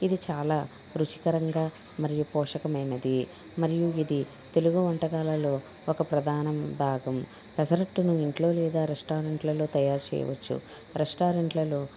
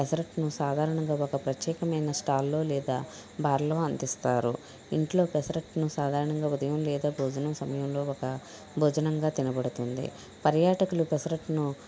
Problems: constant background noise